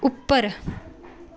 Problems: background sounds at intervals